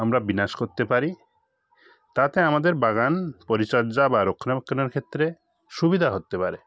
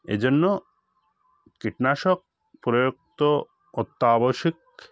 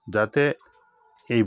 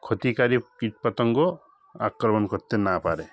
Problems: none marked